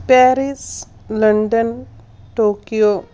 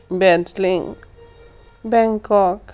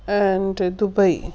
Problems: none marked